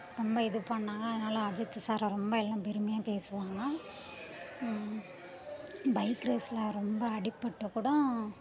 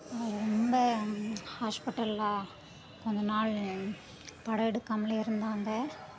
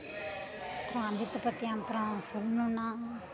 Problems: continuous background conversations